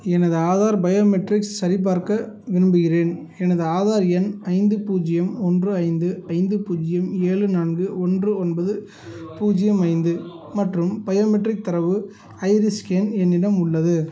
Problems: background sounds at intervals, background conversations at intervals